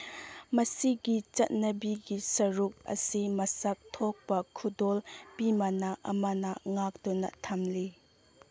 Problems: none marked